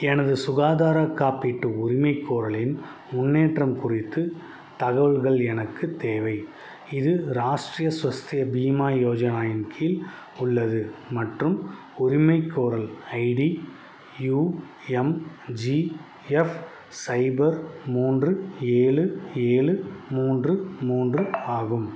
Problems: background sounds at intervals